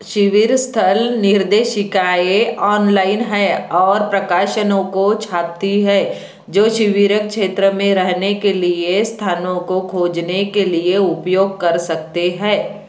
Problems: constant background noise